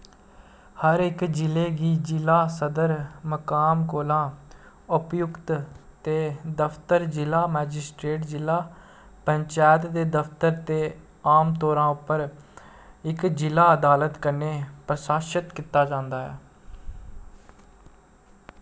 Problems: constant background noise